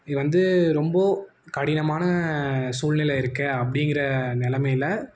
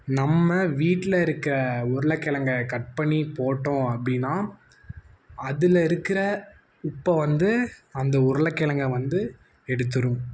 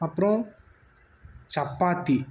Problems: none marked